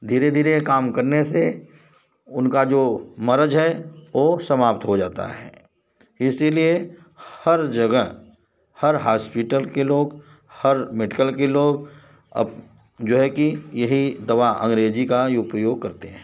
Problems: none marked